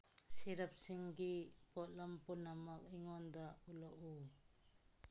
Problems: none marked